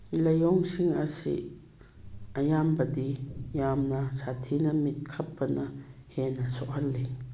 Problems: background sounds at intervals